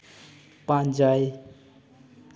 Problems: none marked